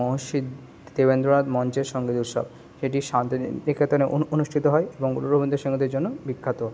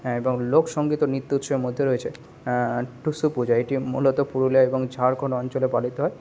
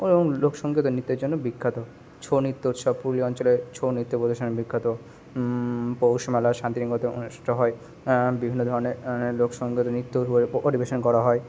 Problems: constant background noise